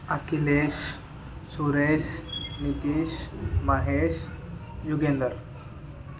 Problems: continuous background conversations